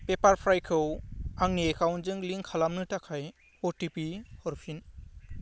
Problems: low volume